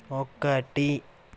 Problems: none marked